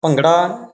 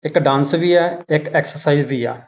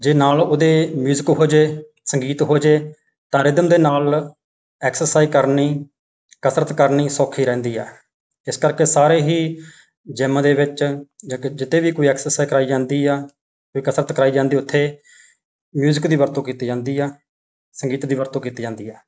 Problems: none marked